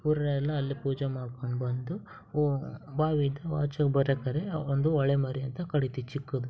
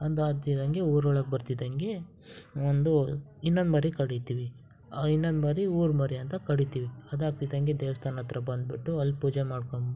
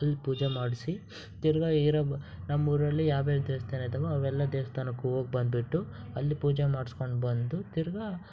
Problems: background sounds at intervals